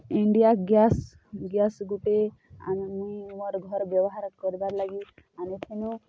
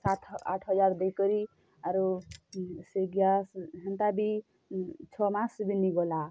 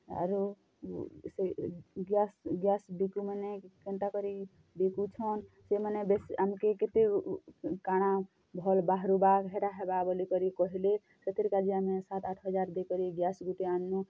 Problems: low volume